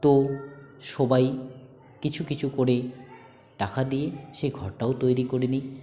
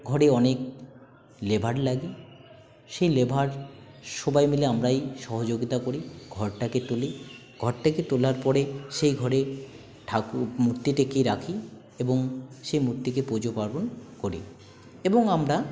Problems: constant background noise, continuous background conversations